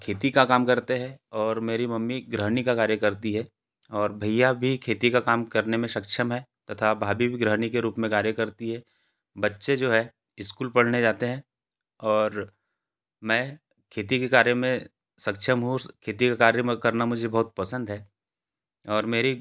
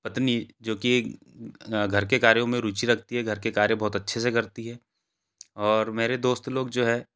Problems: background sounds at intervals